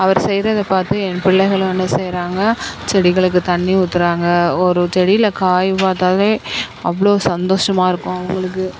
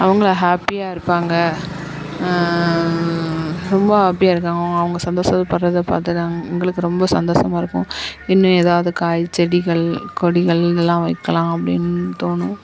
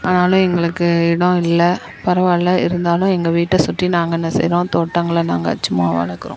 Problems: constant background noise